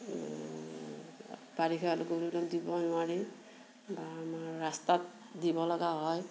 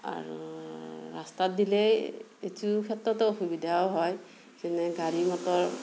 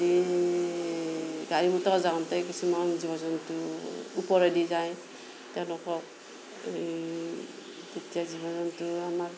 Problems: background sounds at intervals